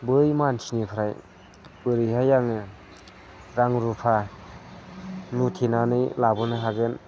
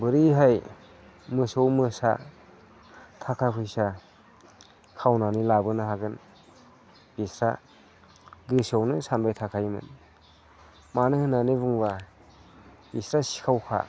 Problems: none marked